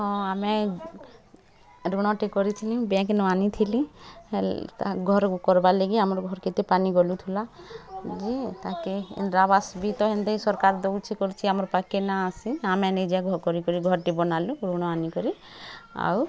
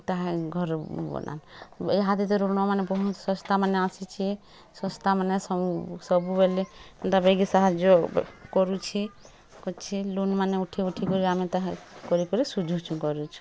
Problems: constant background noise, continuous background conversations